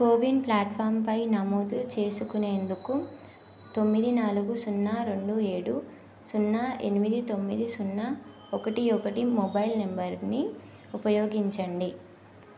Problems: none marked